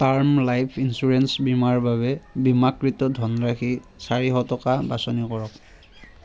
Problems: none marked